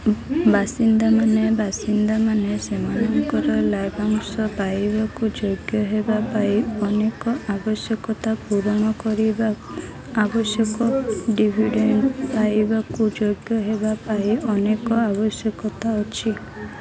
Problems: constant background noise